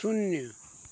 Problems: constant background noise